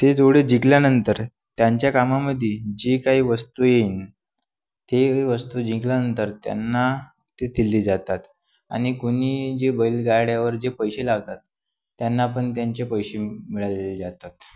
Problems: constant background noise